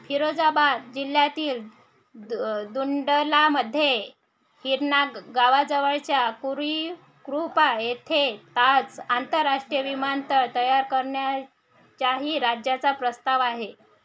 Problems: background sounds at intervals